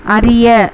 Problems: constant background noise